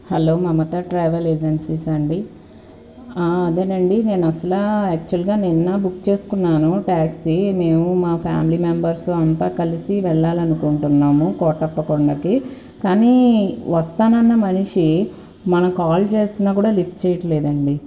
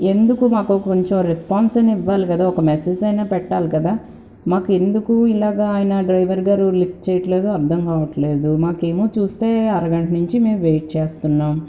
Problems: constant background noise